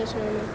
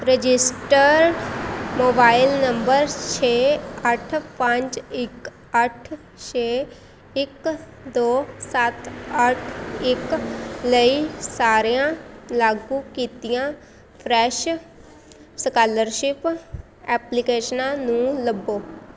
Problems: constant background noise, background conversations at intervals